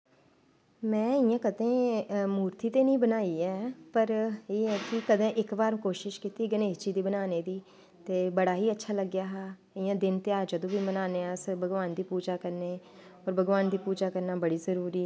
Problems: constant background noise